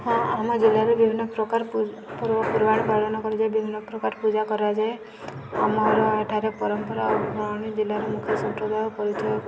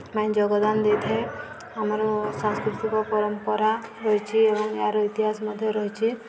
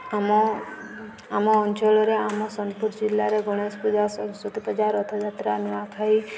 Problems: constant background noise